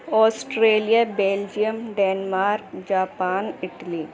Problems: constant background noise